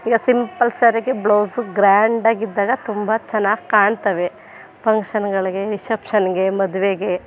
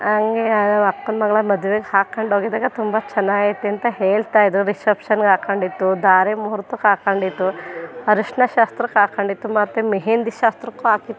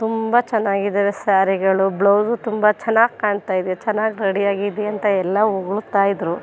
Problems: background sounds at intervals